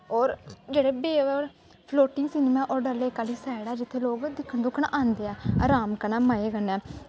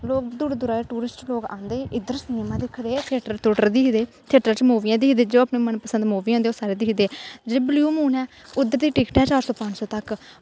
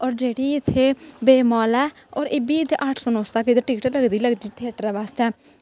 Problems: constant background noise